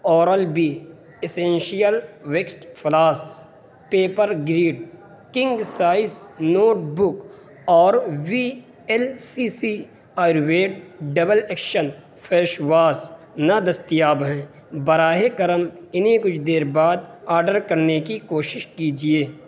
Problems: constant background noise